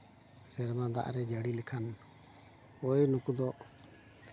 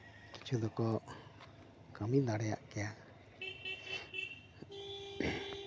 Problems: constant background noise, continuous background conversations